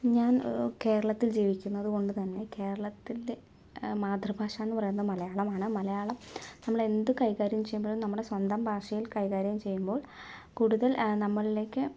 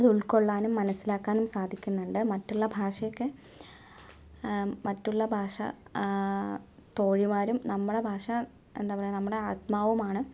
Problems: low volume